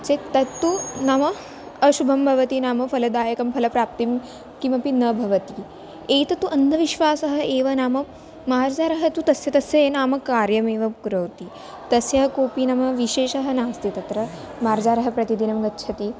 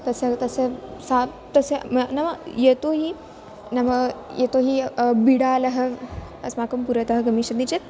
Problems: background sounds at intervals